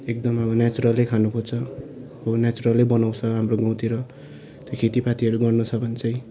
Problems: background sounds at intervals